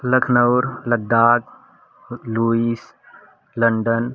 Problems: constant background noise